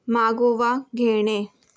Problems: background sounds at intervals